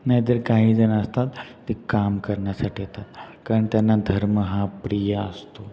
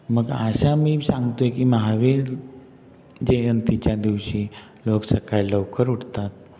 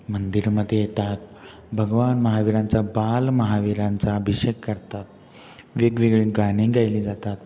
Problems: background sounds at intervals